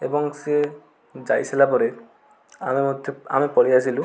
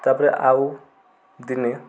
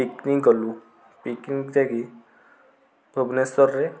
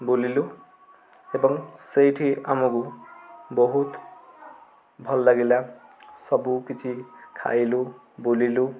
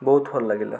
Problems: constant background noise, continuous background conversations